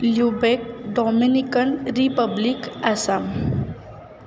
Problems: none marked